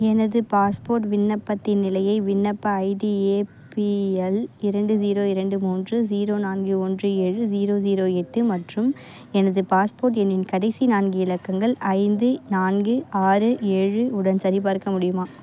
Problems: constant background noise